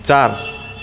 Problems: none marked